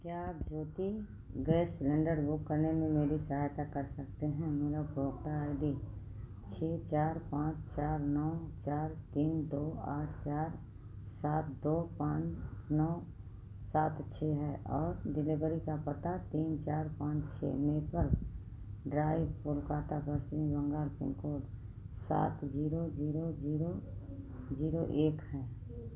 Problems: low volume